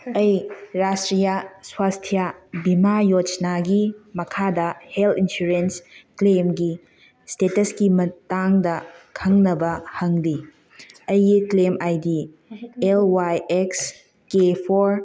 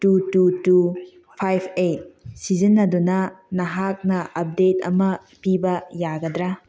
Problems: background conversations at intervals